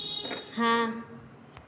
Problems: background sounds at intervals